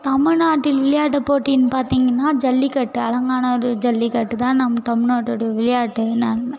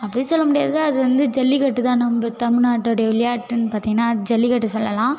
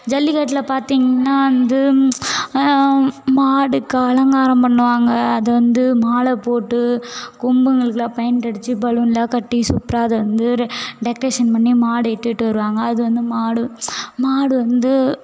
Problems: background sounds at intervals